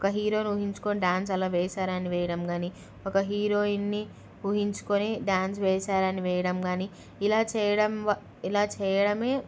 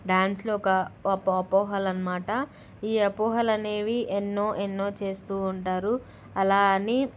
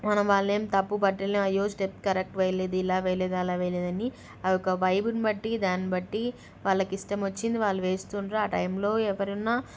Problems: none marked